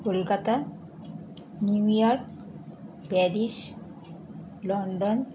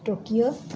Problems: none marked